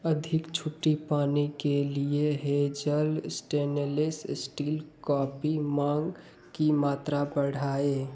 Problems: background sounds at intervals